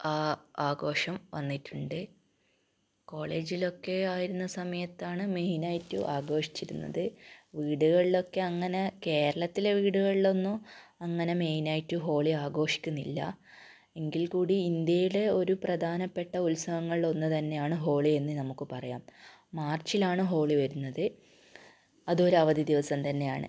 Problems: low volume